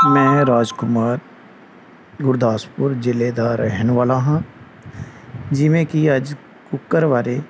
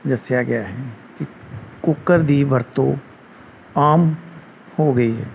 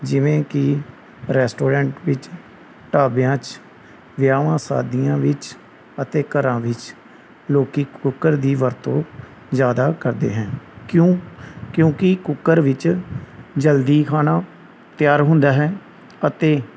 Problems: none marked